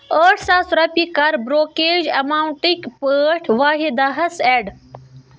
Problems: none marked